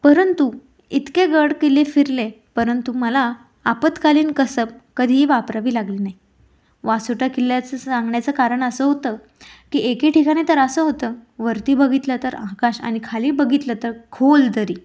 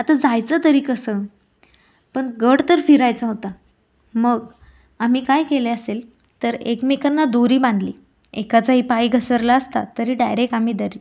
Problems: none marked